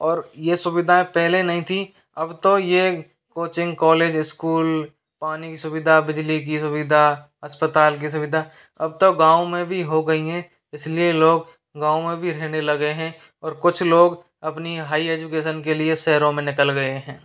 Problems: constant background noise